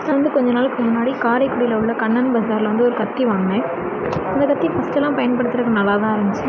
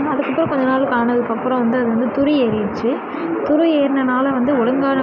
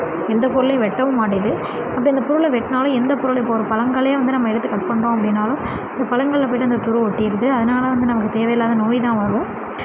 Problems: constant background noise, continuous background conversations